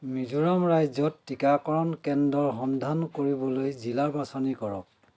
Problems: constant background noise